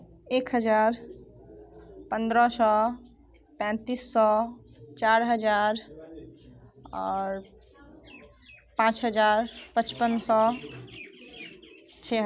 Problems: constant background noise